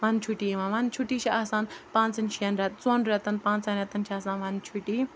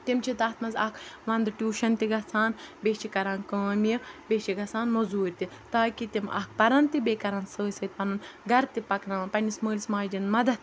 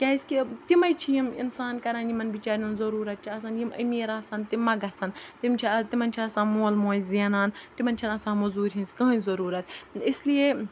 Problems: none marked